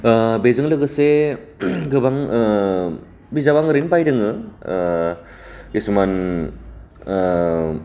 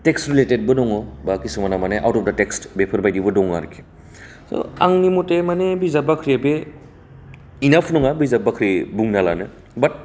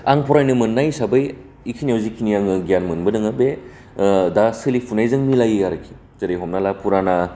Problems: low volume